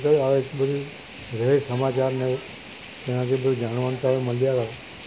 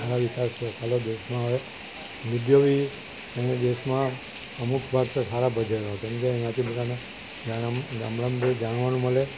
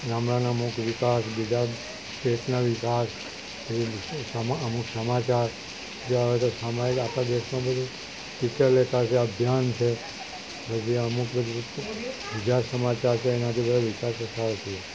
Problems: constant background noise